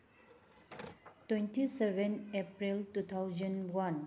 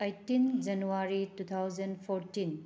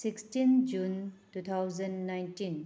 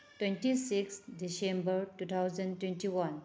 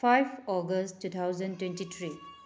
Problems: background conversations at intervals